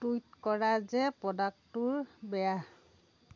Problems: constant background noise